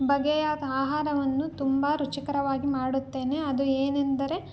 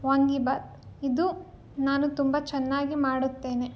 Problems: none marked